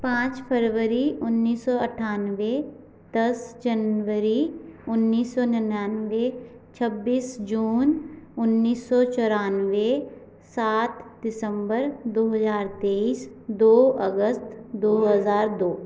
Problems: background sounds at intervals